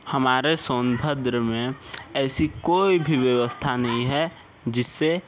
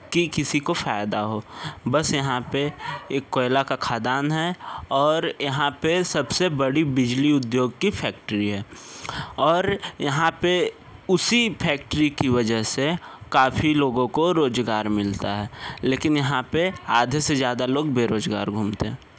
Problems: constant background noise